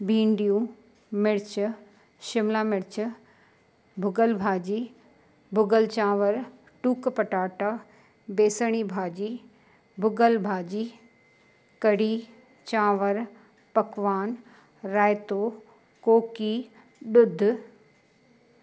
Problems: constant background noise